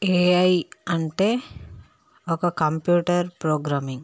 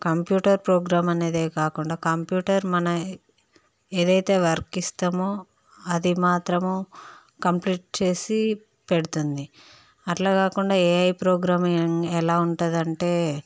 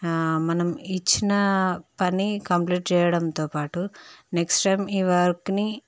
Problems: none marked